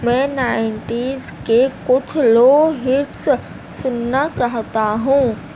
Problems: constant background noise